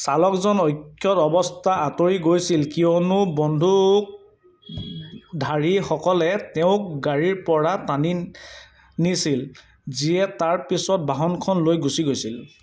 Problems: background sounds at intervals